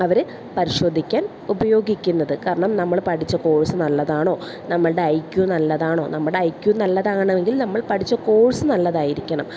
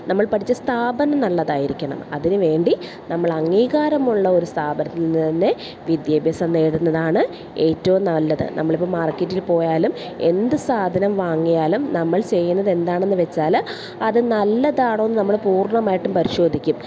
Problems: none marked